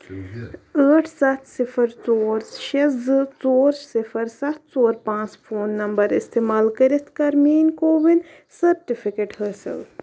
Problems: none marked